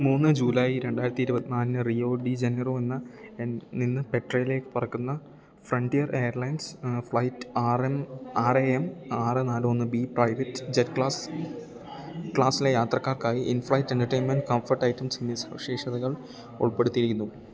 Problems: low volume